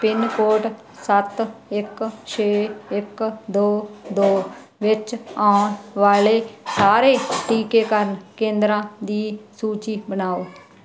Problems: constant background noise